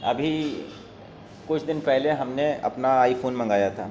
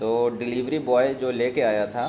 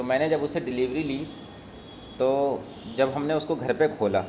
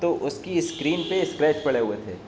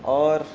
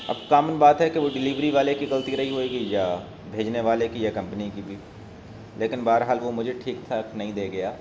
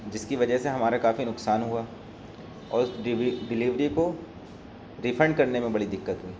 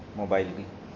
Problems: constant background noise